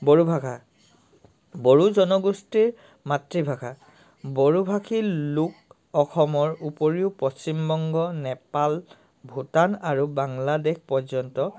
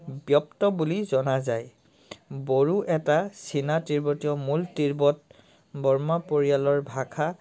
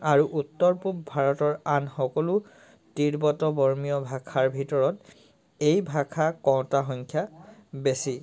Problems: constant background noise